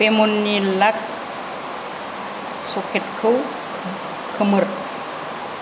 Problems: none marked